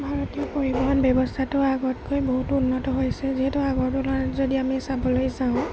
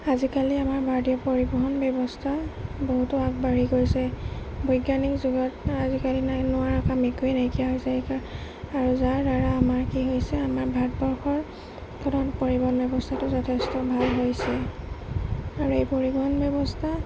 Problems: constant background noise, low volume